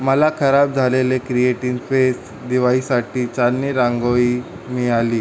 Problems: constant background noise